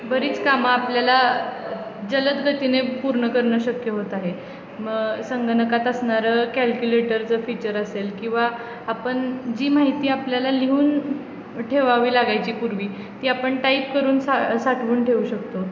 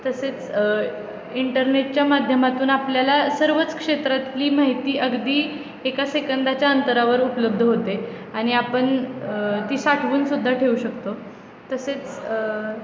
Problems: constant background noise, continuous background conversations